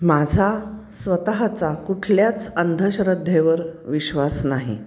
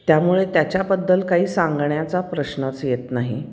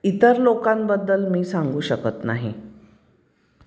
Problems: background sounds at intervals